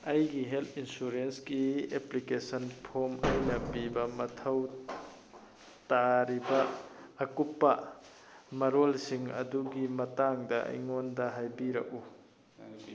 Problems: background sounds at intervals